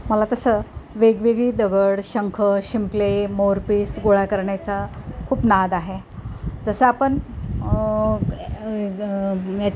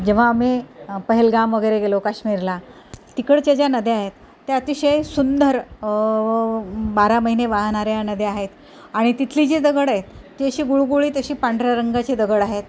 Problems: none marked